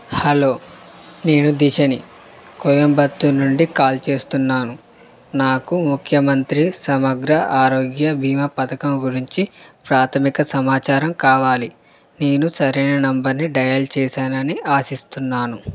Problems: constant background noise